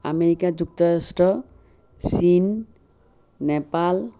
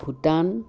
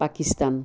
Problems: constant background noise